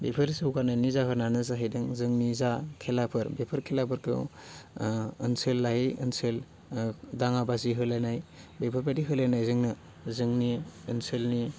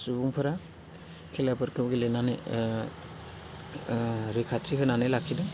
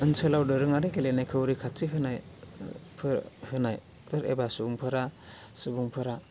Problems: none marked